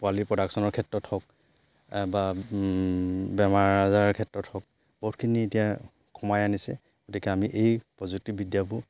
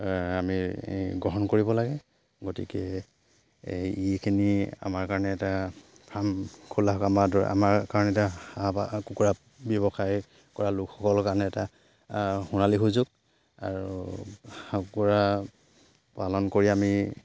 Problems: background sounds at intervals